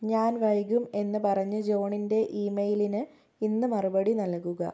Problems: low volume